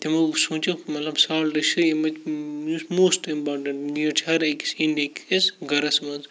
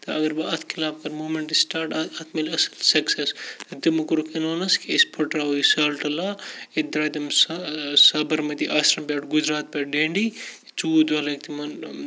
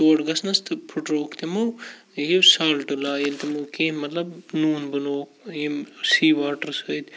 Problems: background sounds at intervals, low volume